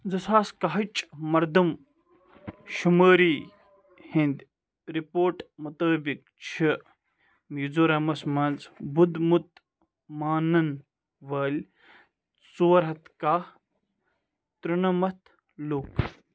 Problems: none marked